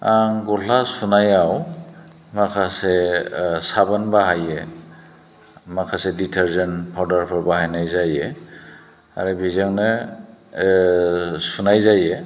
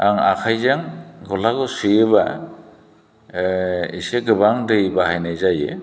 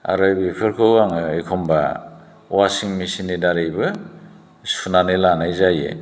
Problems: none marked